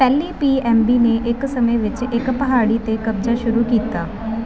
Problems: none marked